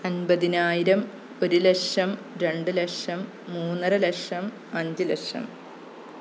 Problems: none marked